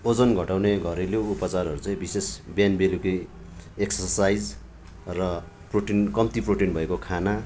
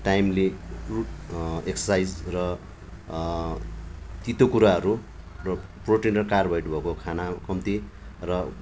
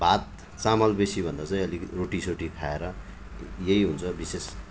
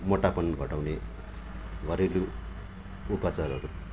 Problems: none marked